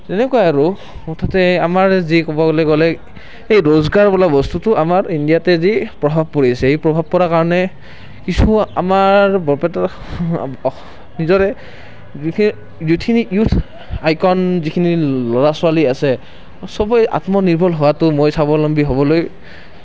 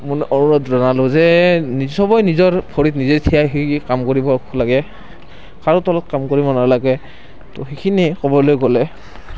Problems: background sounds at intervals, continuous background conversations